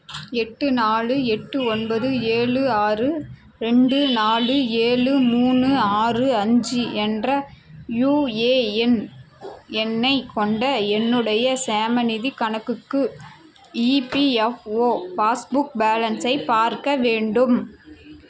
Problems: constant background noise